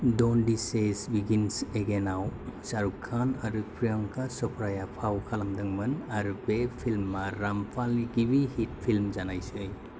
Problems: none marked